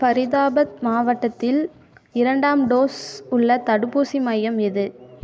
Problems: none marked